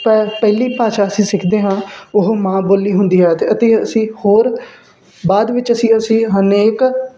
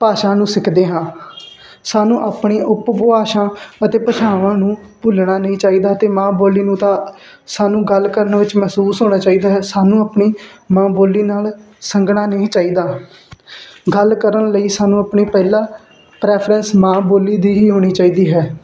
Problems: background sounds at intervals, background conversations at intervals